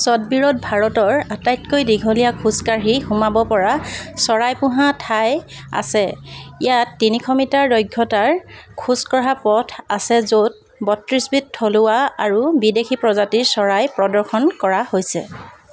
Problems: constant background noise